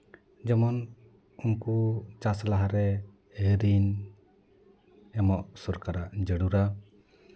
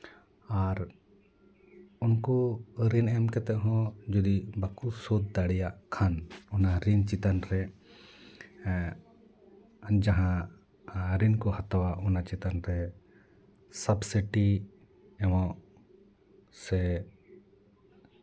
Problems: none marked